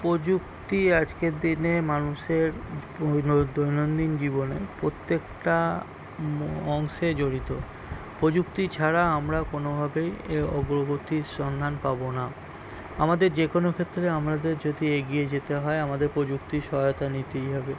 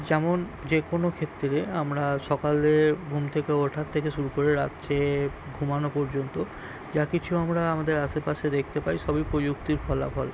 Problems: background sounds at intervals